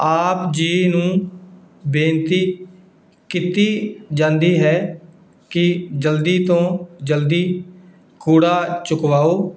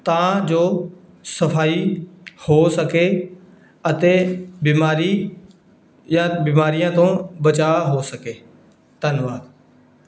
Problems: none marked